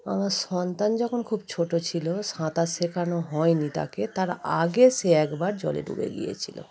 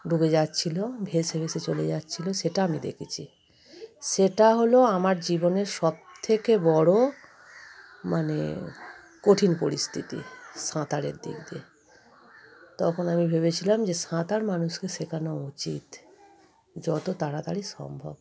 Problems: constant background noise, continuous background conversations